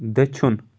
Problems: none marked